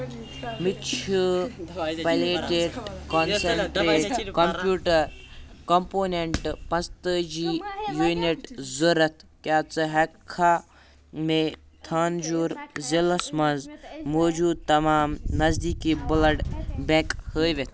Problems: continuous background conversations